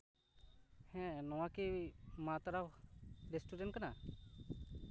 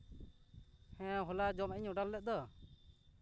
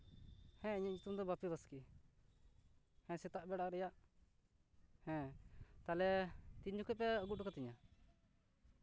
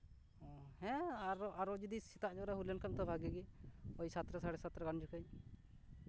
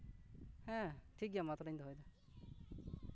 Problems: none marked